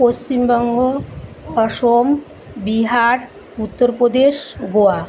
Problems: none marked